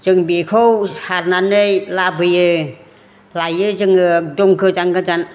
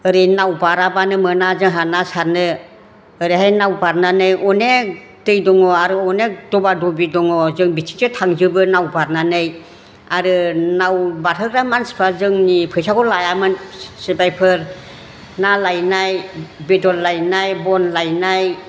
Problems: constant background noise